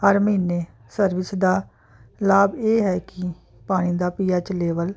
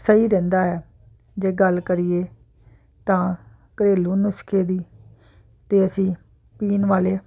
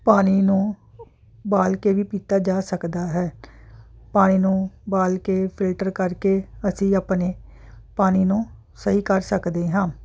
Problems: constant background noise